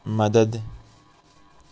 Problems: none marked